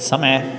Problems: constant background noise